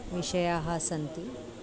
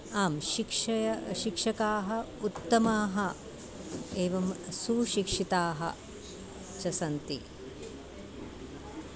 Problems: none marked